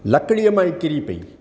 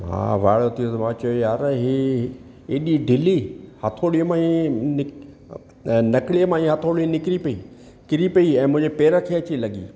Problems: none marked